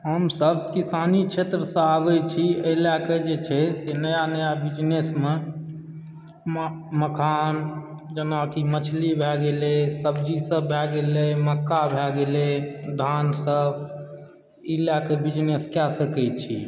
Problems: background sounds at intervals